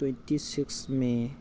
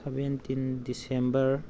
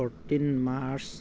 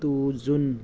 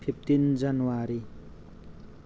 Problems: constant background noise